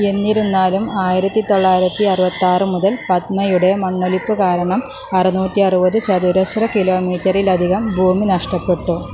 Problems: constant background noise